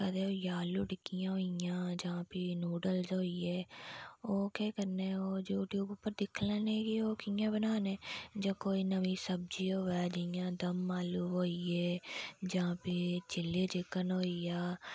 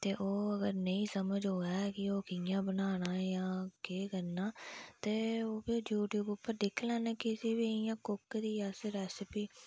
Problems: background sounds at intervals, low volume